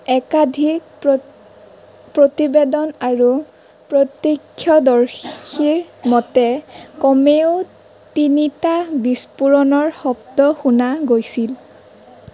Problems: none marked